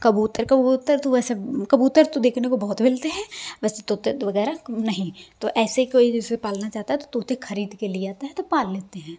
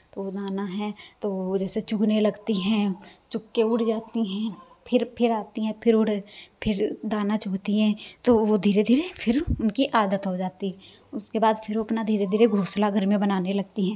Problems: constant background noise